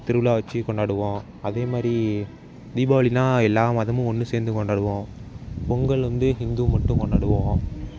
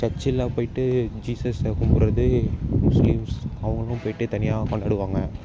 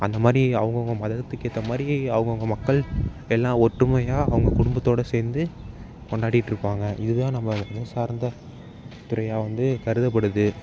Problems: background sounds at intervals